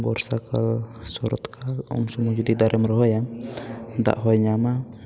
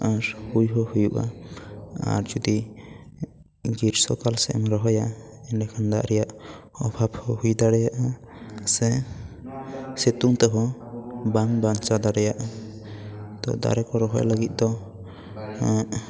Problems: background conversations at intervals